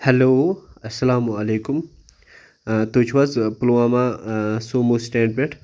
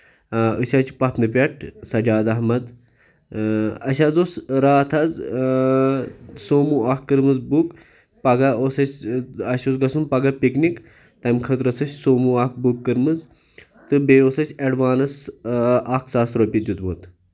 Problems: background conversations at intervals